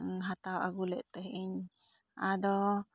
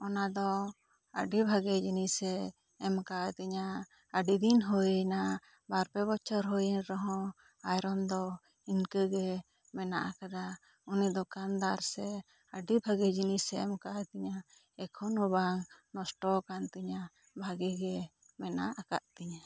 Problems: low volume